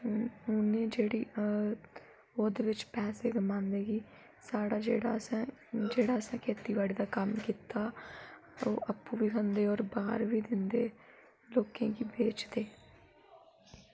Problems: none marked